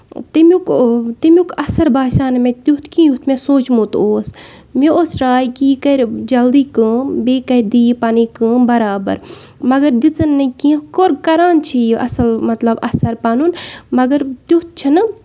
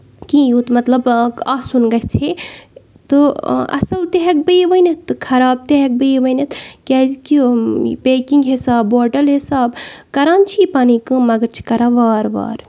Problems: background sounds at intervals